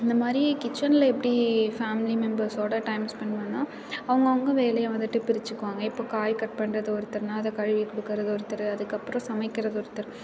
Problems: constant background noise, continuous background conversations